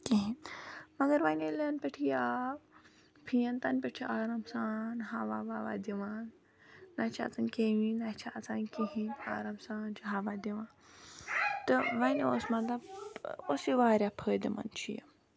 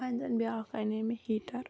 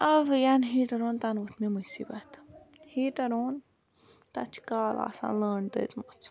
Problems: background sounds at intervals